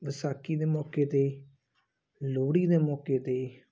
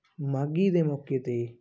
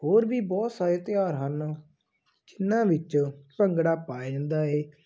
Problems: none marked